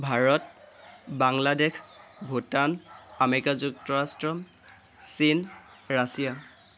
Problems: constant background noise